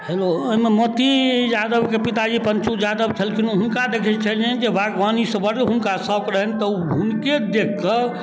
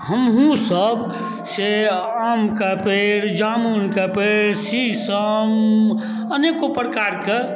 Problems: none marked